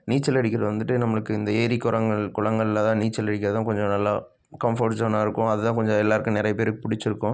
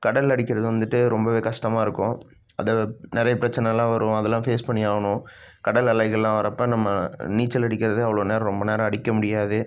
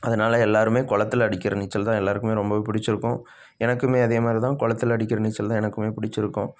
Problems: none marked